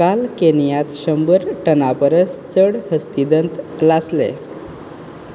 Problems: constant background noise